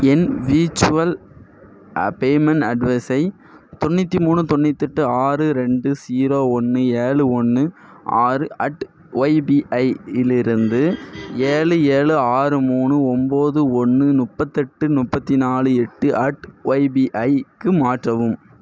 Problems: constant background noise